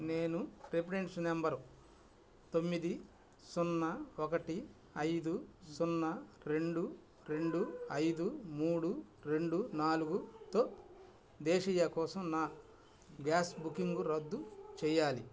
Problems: background sounds at intervals